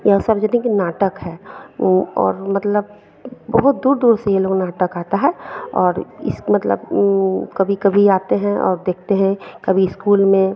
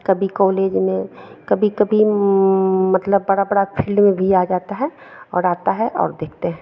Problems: none marked